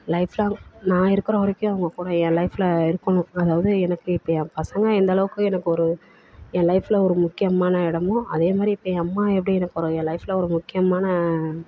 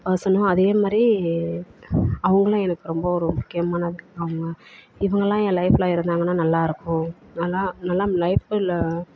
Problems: background conversations at intervals